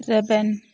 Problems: none marked